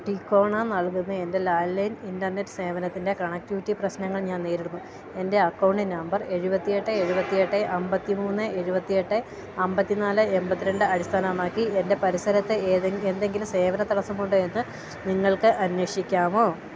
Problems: none marked